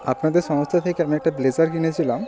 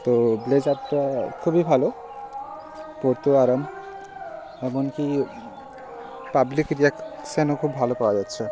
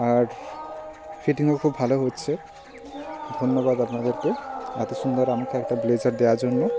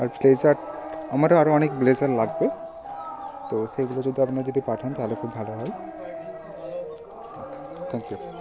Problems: constant background noise